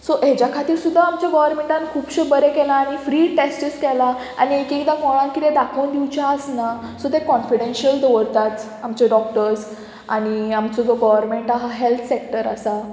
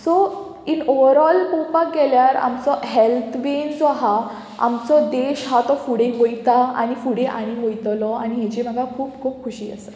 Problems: background sounds at intervals